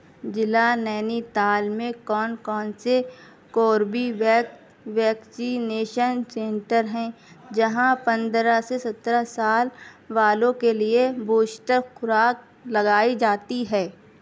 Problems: constant background noise, background conversations at intervals